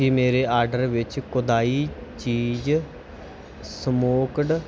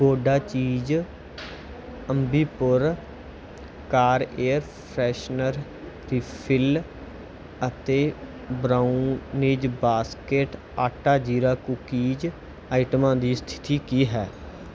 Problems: background sounds at intervals